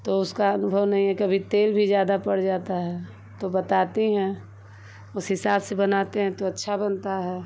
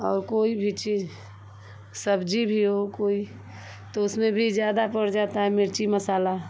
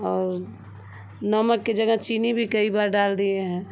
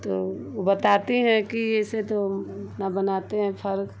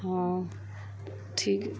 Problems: constant background noise